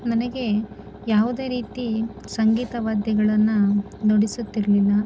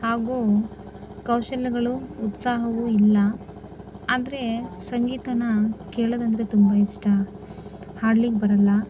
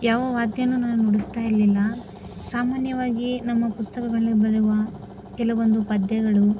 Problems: constant background noise